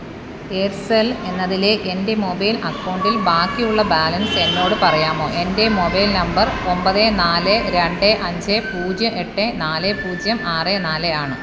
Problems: constant background noise